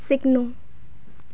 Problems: background sounds at intervals